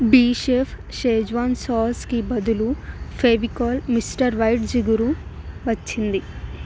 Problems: constant background noise